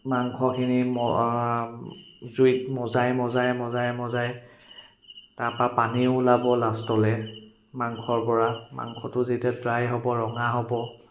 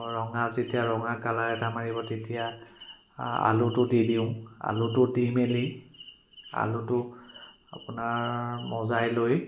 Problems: constant background noise, echo